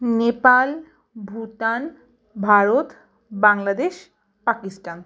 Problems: background sounds at intervals, background conversations at intervals